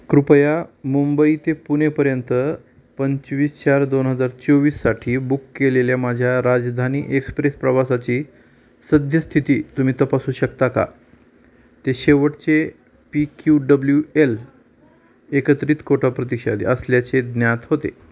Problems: constant background noise, background conversations at intervals